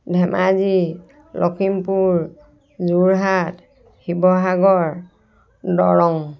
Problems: background sounds at intervals, background conversations at intervals